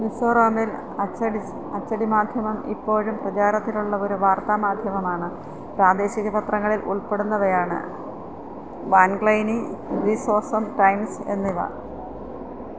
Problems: background sounds at intervals